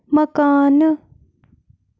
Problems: constant background noise